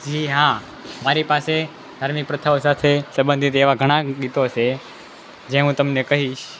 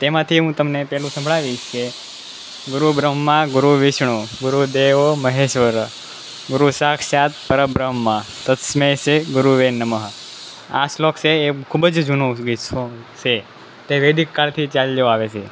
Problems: none marked